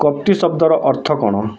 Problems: background conversations at intervals